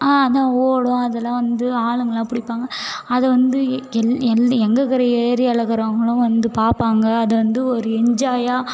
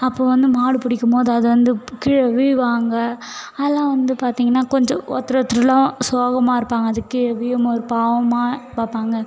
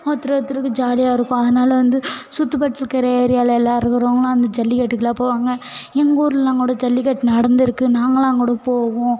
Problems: background sounds at intervals